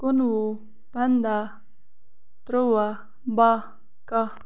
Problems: constant background noise